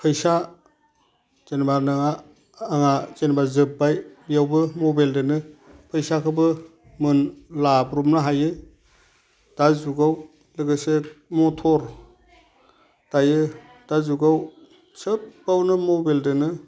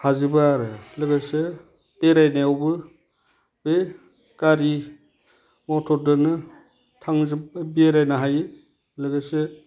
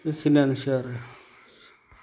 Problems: constant background noise